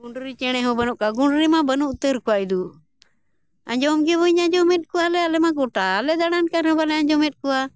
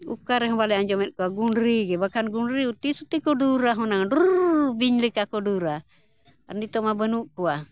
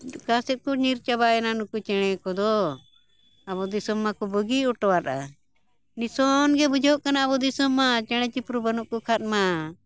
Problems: none marked